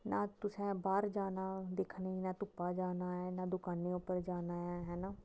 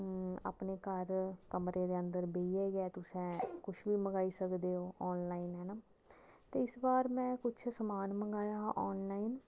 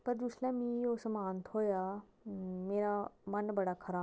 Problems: low volume